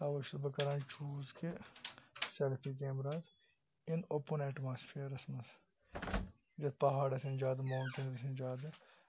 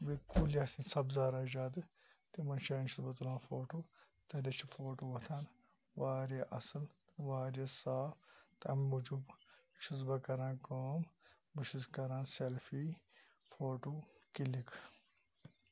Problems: none marked